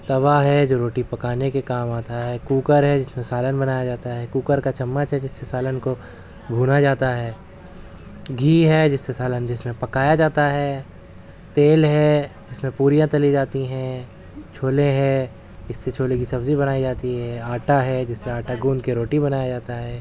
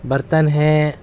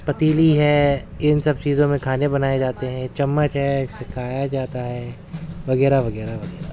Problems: constant background noise